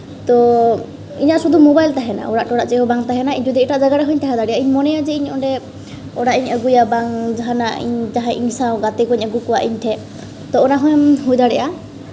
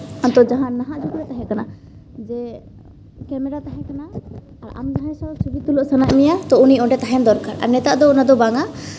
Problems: background sounds at intervals, low volume